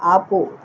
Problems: none marked